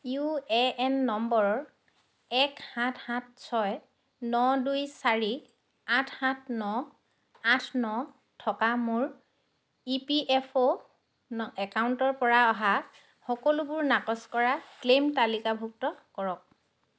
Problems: constant background noise